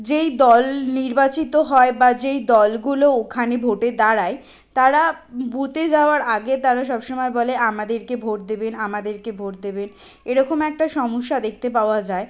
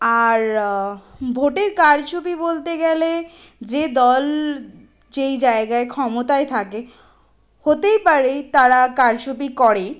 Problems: constant background noise